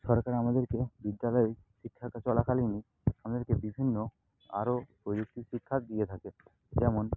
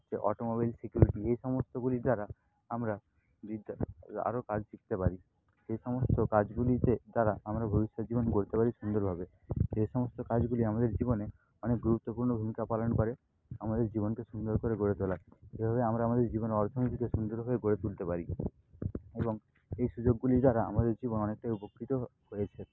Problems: background sounds at intervals